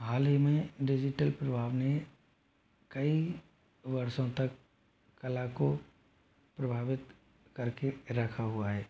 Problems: low volume